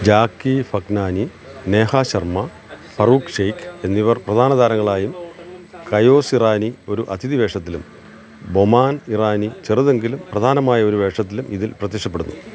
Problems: constant background noise